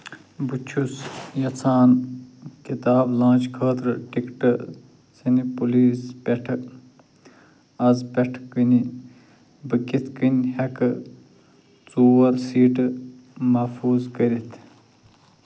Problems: low volume